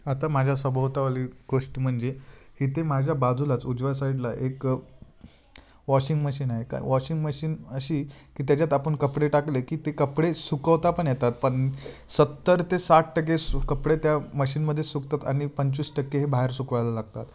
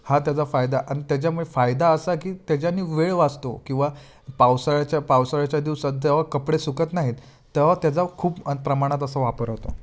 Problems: background sounds at intervals